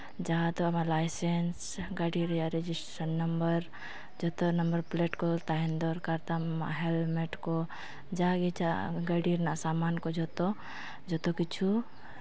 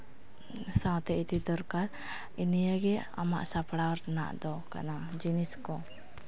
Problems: none marked